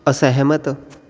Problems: constant background noise